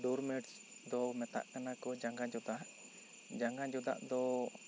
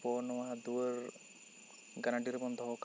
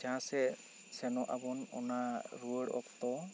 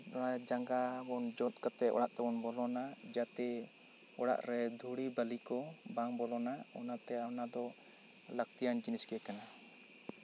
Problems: constant background noise